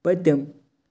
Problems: constant background noise